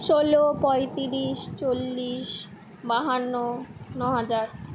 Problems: none marked